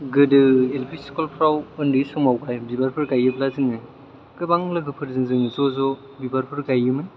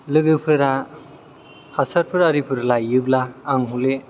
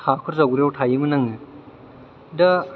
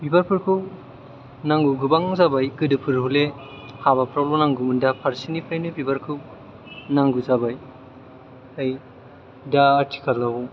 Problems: none marked